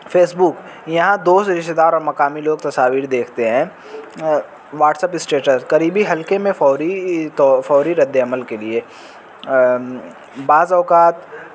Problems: constant background noise